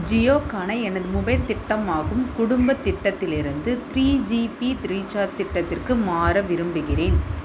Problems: constant background noise